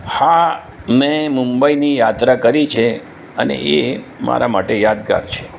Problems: constant background noise